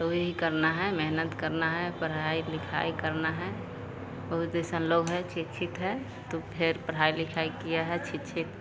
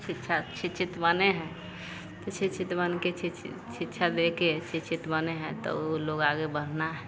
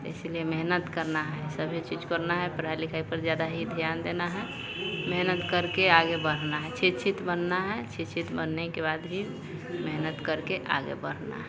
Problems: none marked